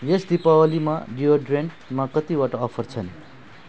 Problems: none marked